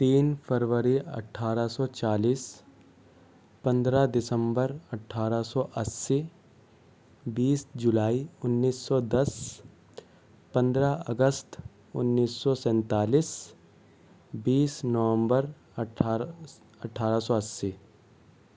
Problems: none marked